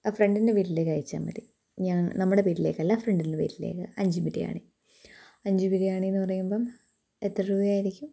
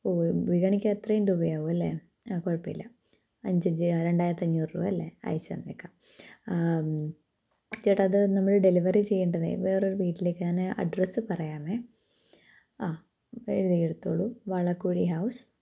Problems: low volume